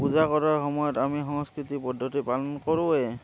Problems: constant background noise